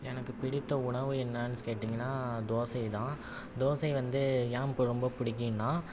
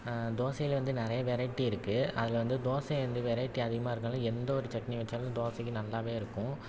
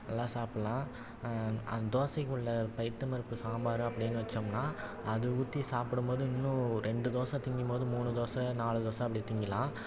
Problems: none marked